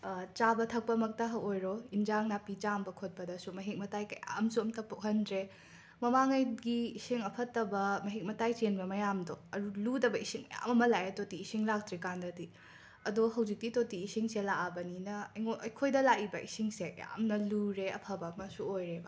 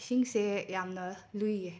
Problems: background sounds at intervals